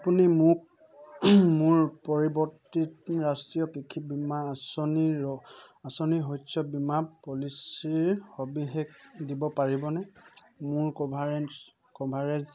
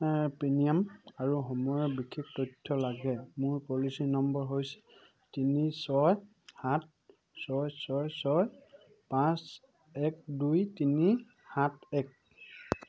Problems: none marked